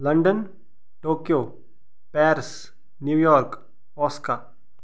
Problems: background sounds at intervals